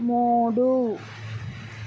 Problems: constant background noise